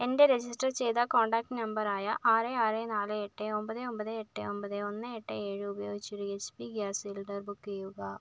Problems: low volume